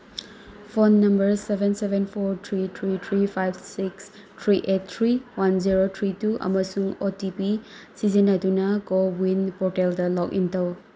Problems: background sounds at intervals